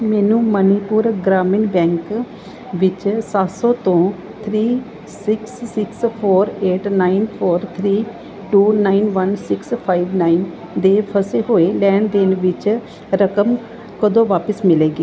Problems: none marked